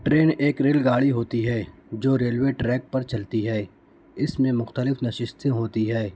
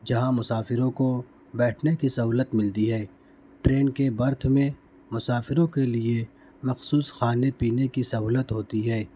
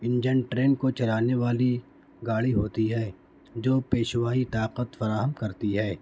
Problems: background sounds at intervals